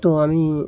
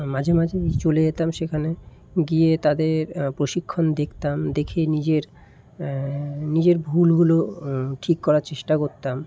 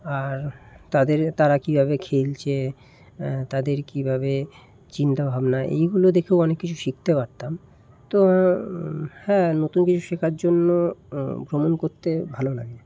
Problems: constant background noise